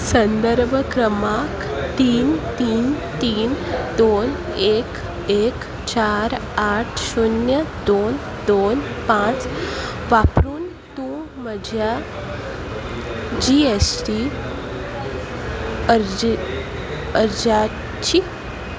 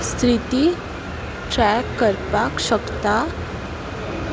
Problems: constant background noise, continuous background conversations